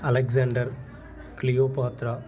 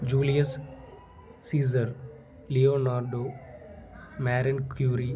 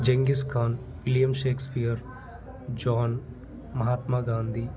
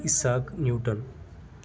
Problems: constant background noise